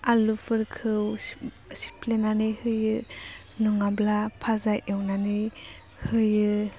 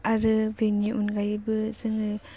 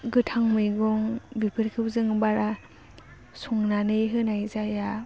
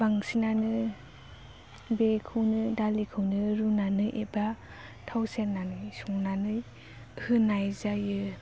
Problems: low volume